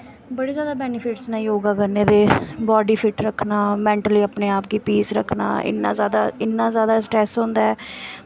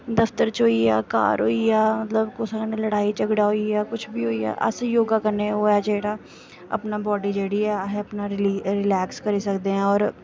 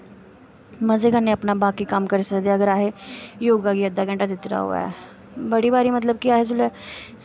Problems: constant background noise